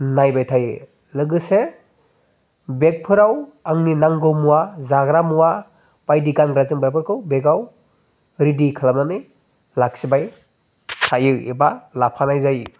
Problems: background conversations at intervals